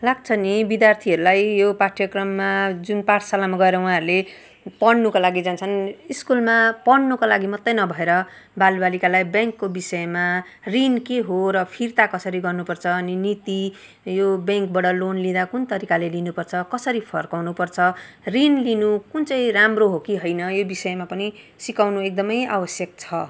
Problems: constant background noise